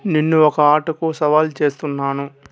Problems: background sounds at intervals